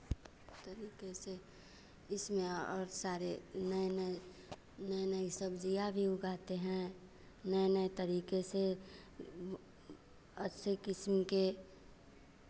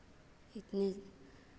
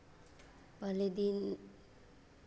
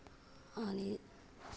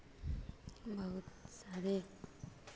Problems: none marked